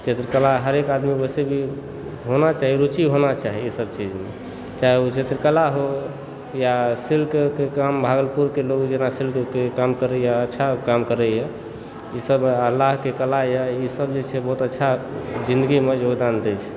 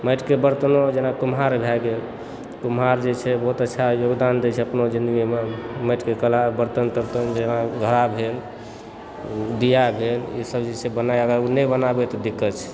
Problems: background sounds at intervals